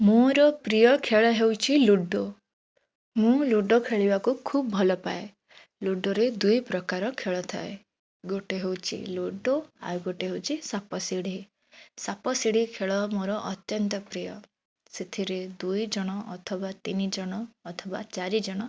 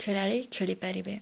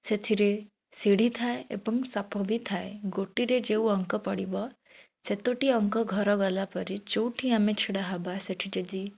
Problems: none marked